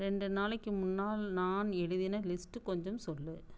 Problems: constant background noise